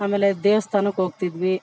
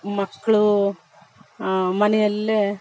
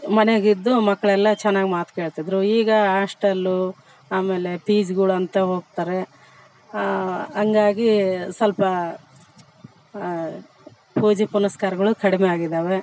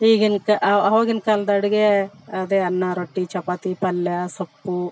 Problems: background sounds at intervals